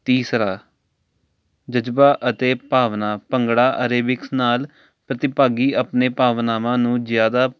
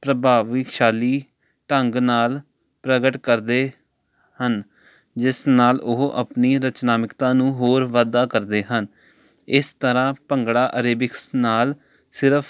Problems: none marked